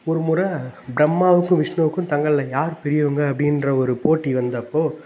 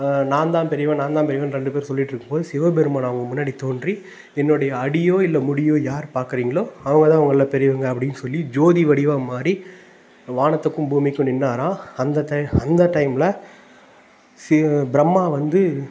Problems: none marked